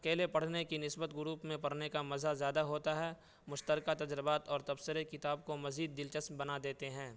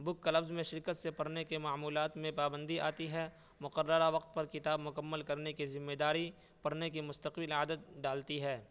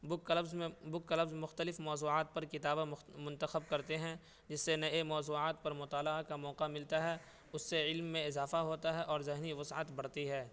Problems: background sounds at intervals, low volume